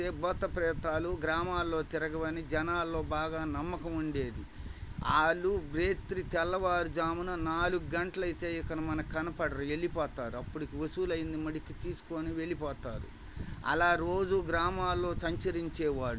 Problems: none marked